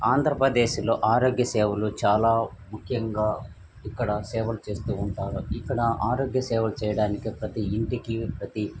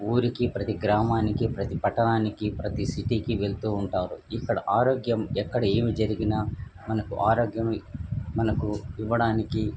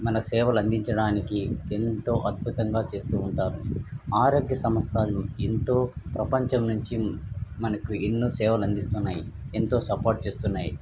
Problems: background sounds at intervals